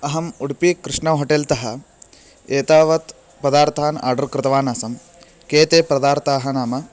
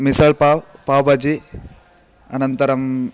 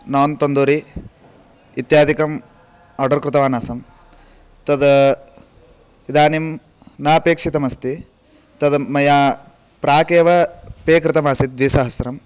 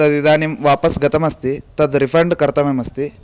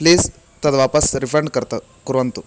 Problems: constant background noise